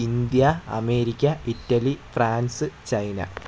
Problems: low volume